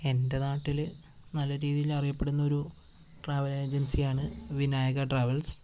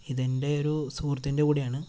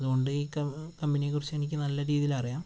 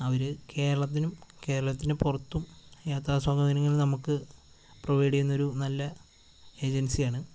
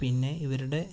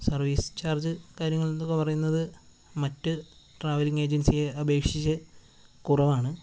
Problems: constant background noise